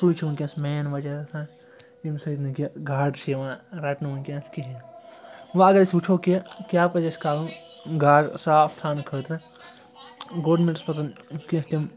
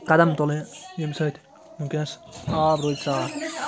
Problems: constant background noise